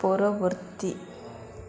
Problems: constant background noise